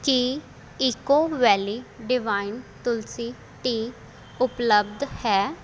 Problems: constant background noise